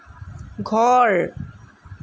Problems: none marked